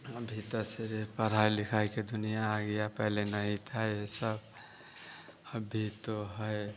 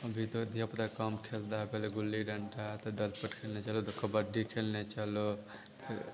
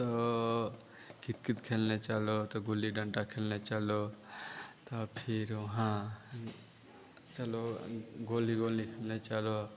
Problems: none marked